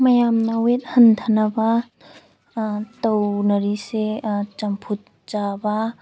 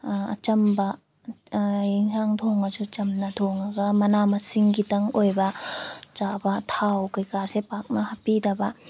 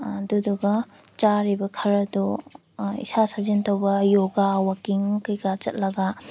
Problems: background sounds at intervals